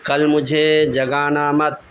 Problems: constant background noise